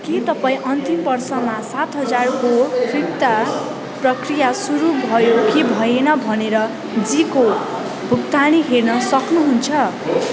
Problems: constant background noise